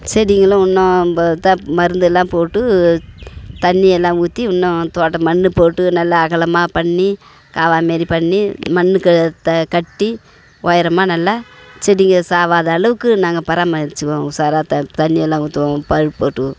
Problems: constant background noise